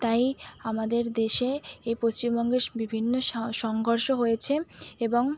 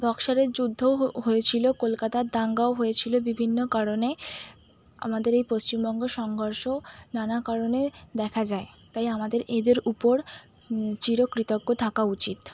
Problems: none marked